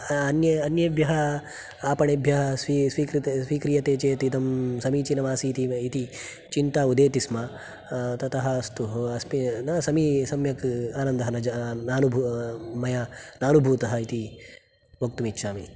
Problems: none marked